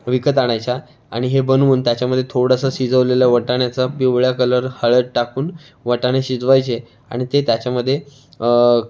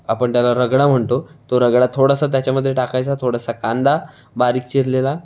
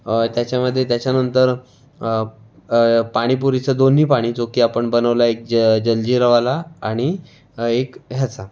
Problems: constant background noise, background conversations at intervals